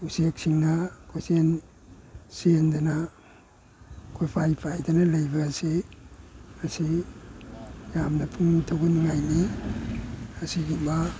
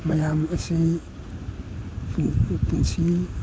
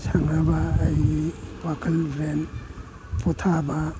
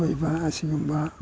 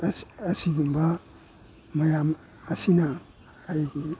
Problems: background sounds at intervals